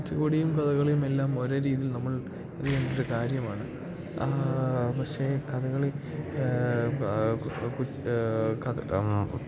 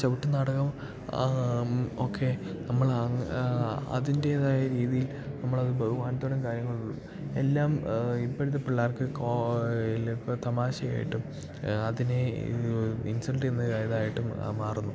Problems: background sounds at intervals, low volume